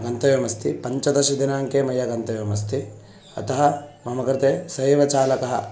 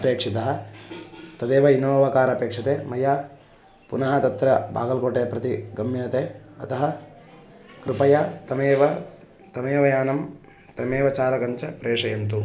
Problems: constant background noise